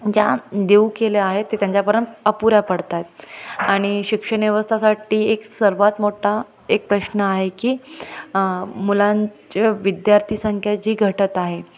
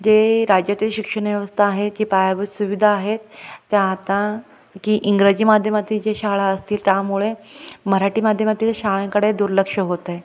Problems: constant background noise, background conversations at intervals, echo